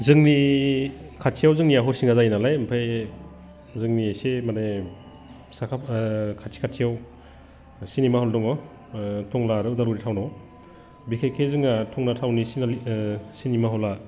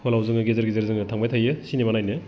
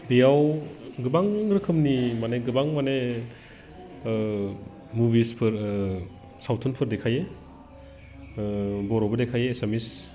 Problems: none marked